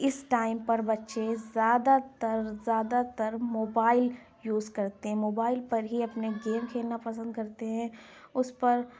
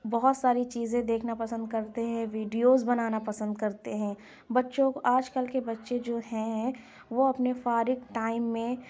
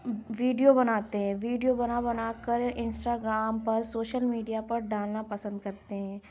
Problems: constant background noise